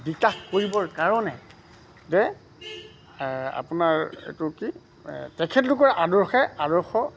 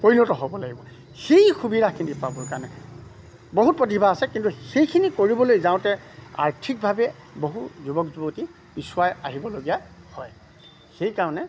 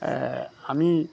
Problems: background sounds at intervals